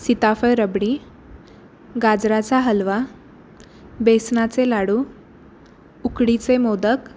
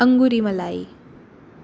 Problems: constant background noise